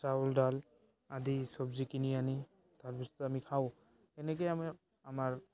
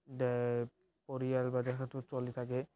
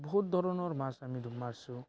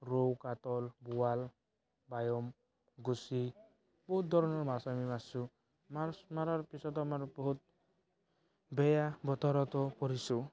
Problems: background sounds at intervals, background conversations at intervals